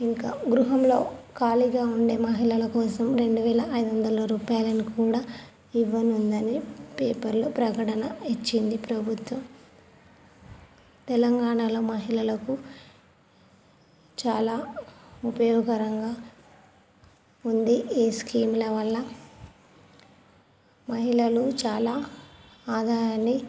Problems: none marked